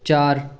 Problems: background conversations at intervals